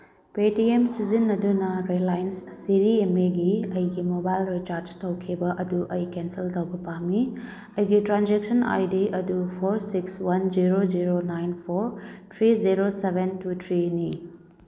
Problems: none marked